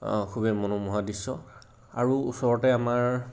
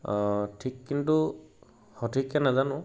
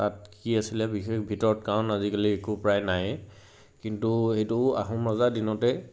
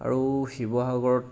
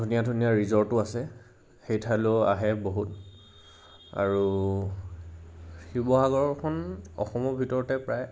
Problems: constant background noise, background conversations at intervals